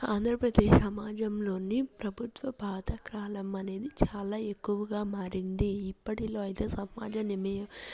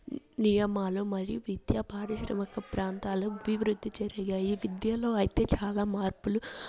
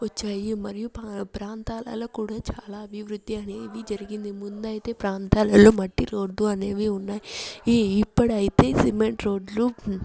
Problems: none marked